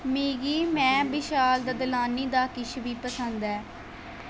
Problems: constant background noise